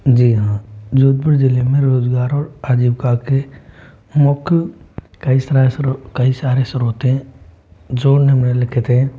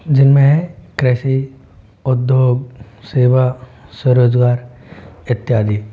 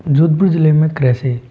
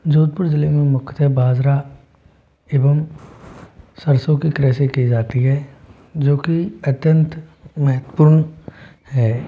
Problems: constant background noise